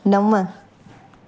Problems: constant background noise, echo